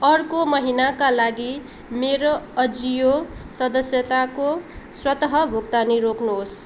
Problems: background sounds at intervals